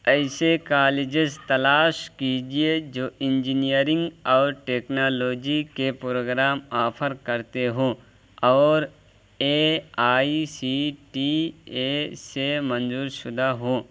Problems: constant background noise